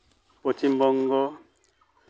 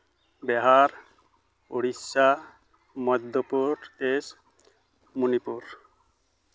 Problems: none marked